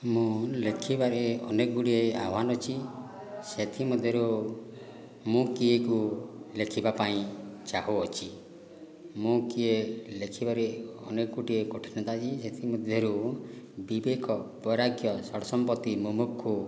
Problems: low volume